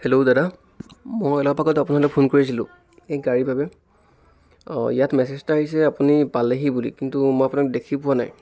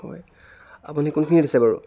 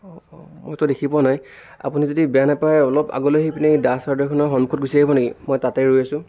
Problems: background conversations at intervals